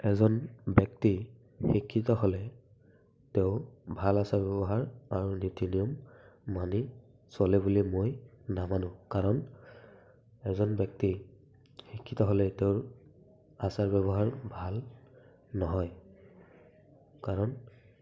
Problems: none marked